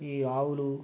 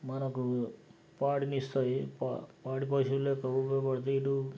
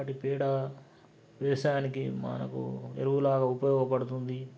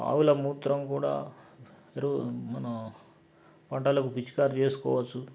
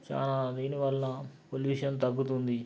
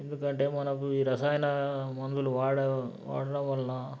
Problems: background sounds at intervals